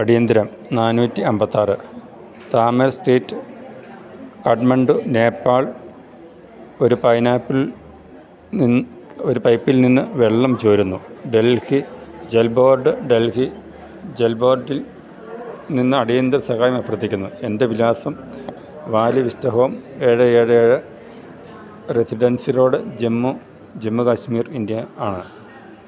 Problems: none marked